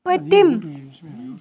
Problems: background sounds at intervals